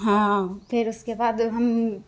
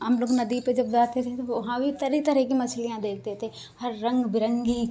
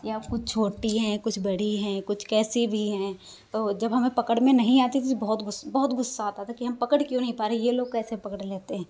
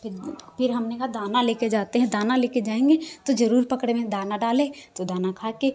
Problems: constant background noise